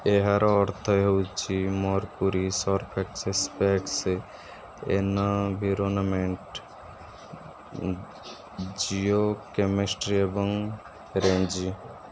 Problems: background sounds at intervals